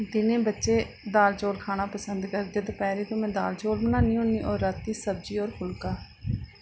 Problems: low volume